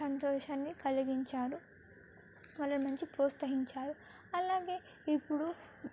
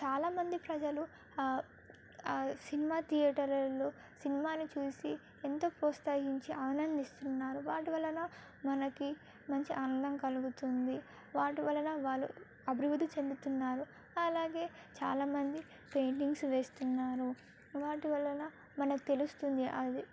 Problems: background sounds at intervals